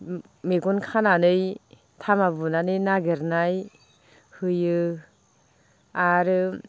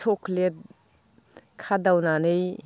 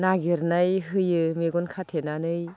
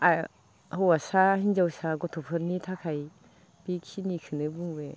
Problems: low volume